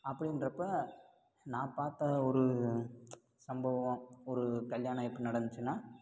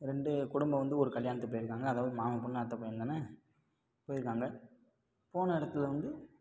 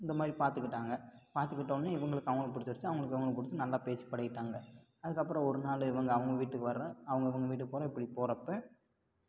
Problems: constant background noise